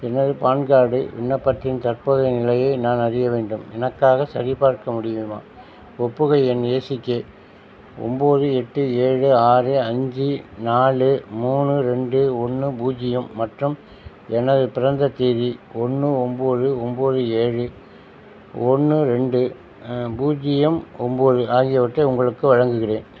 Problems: none marked